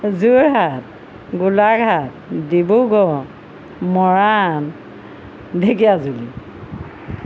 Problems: constant background noise